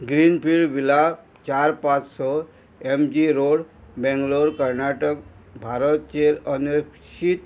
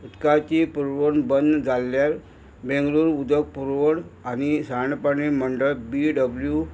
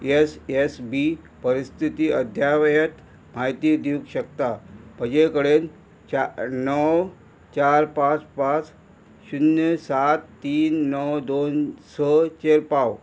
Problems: constant background noise